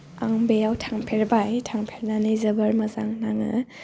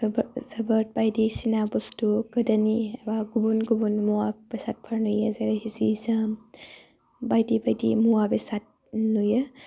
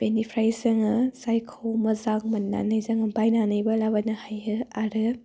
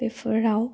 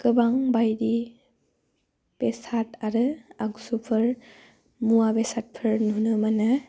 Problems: low volume